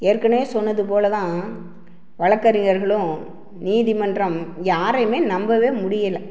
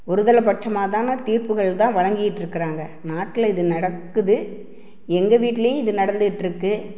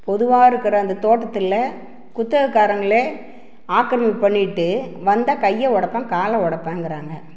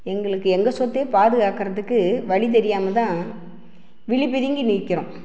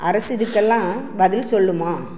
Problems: none marked